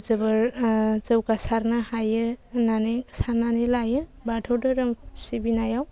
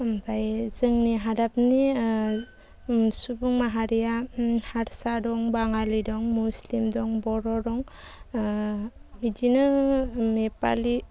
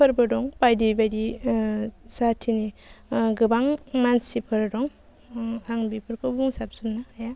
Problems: constant background noise